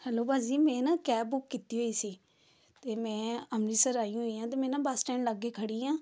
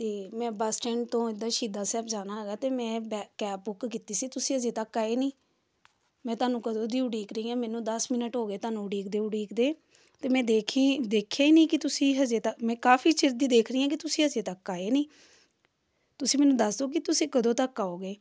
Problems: none marked